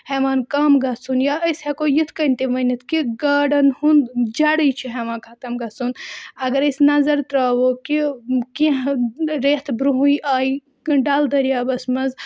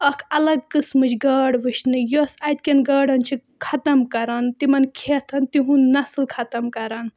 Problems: background sounds at intervals